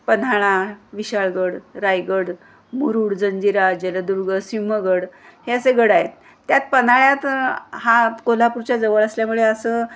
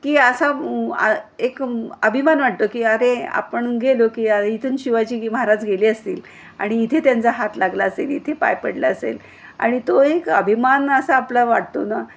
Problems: none marked